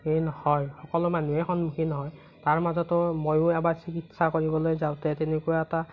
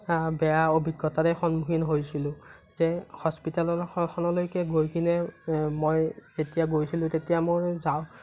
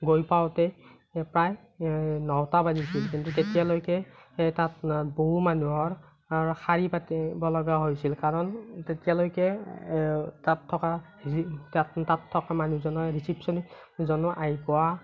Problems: none marked